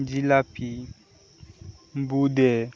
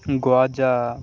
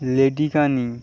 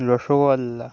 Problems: constant background noise